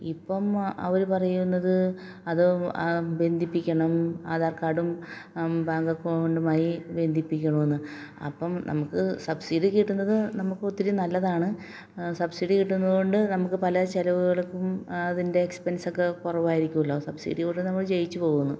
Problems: low volume